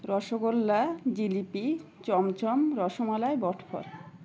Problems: none marked